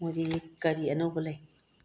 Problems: low volume